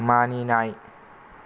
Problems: none marked